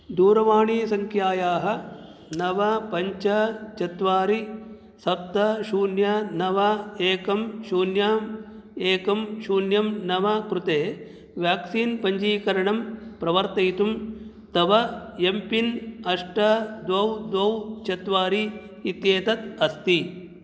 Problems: none marked